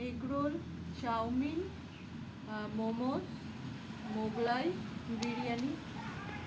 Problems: constant background noise